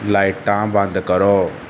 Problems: constant background noise